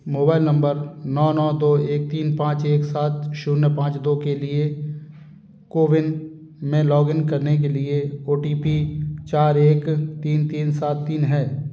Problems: background sounds at intervals